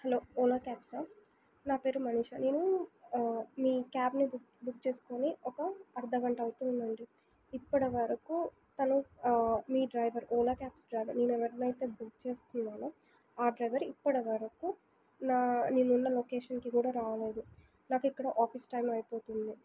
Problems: none marked